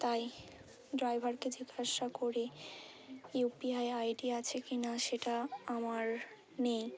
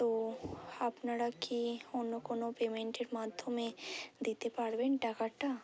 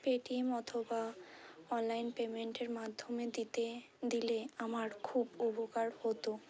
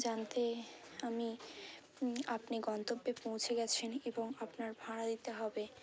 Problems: constant background noise, continuous background conversations